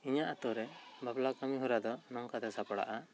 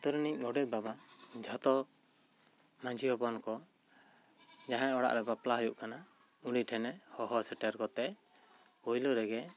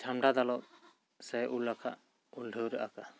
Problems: none marked